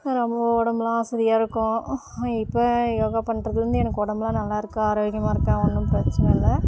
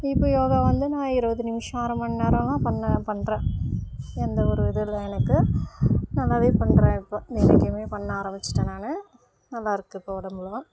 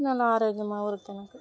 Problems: constant background noise